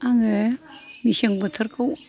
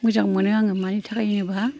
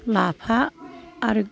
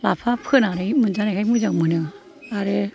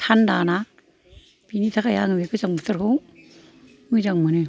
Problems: none marked